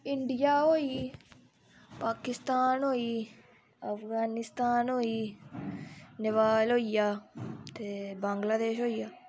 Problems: constant background noise